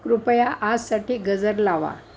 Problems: constant background noise